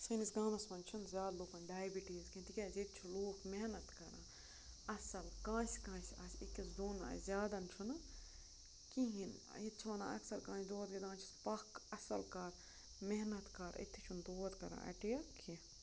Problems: constant background noise, low volume